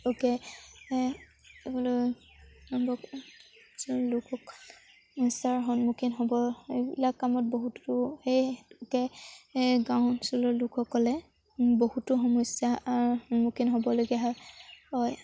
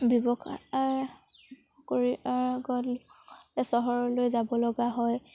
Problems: background sounds at intervals